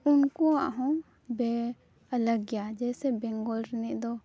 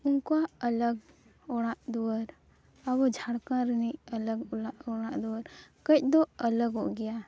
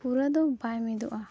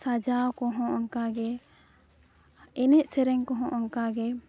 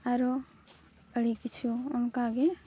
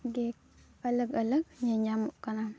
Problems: none marked